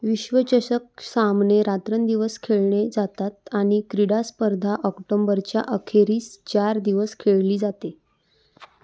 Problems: background sounds at intervals